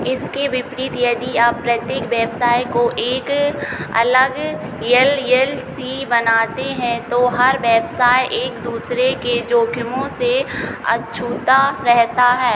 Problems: none marked